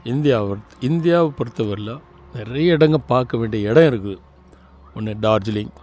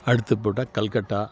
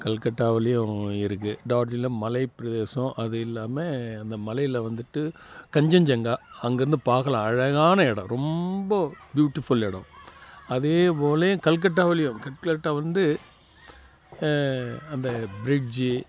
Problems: none marked